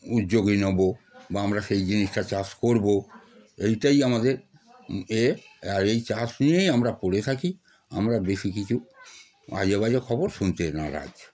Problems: constant background noise